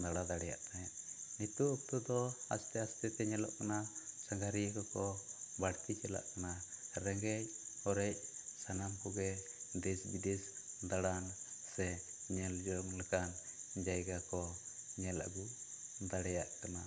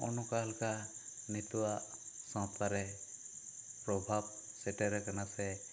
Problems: none marked